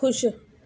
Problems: constant background noise, echo